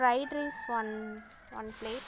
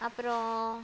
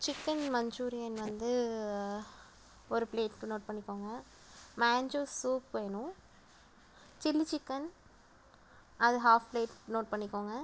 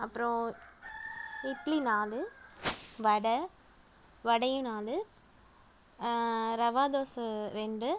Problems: background sounds at intervals